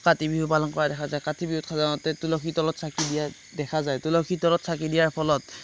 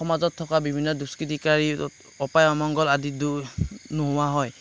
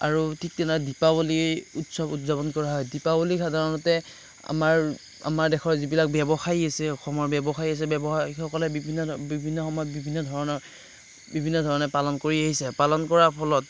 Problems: none marked